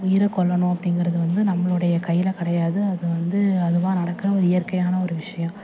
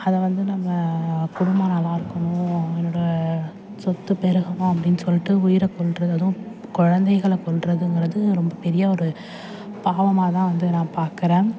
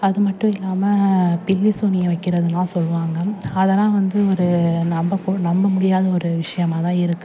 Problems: constant background noise